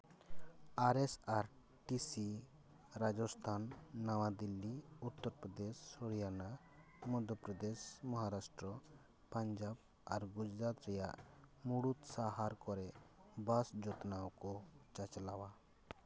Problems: none marked